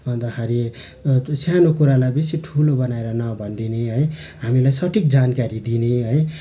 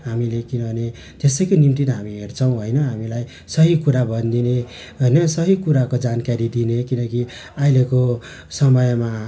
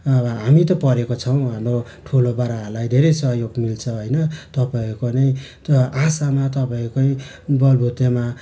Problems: none marked